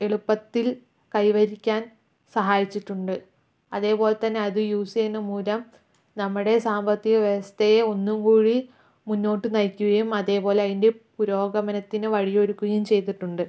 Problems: low volume